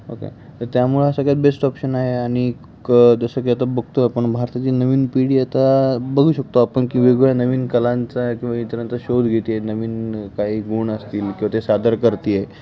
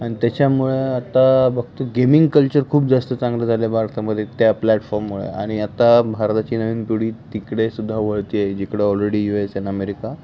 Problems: constant background noise